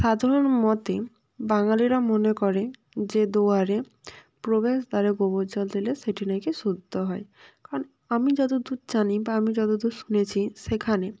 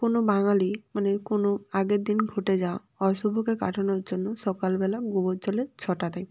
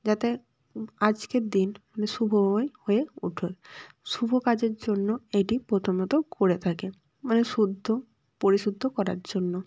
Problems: none marked